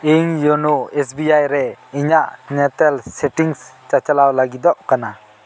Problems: constant background noise